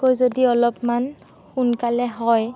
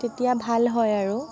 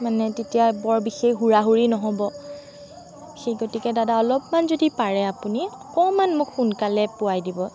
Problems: constant background noise